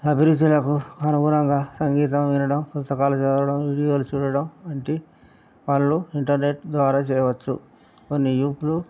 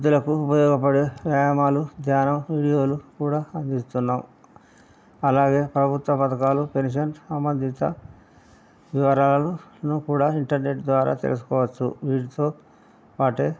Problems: none marked